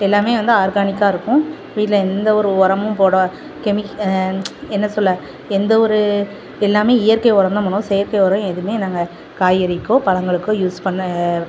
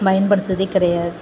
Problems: constant background noise